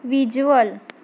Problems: none marked